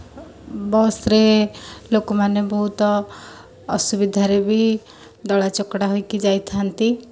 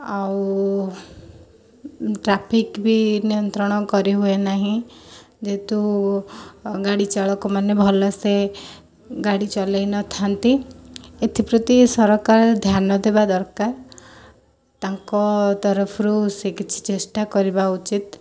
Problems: none marked